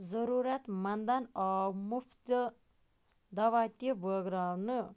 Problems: background sounds at intervals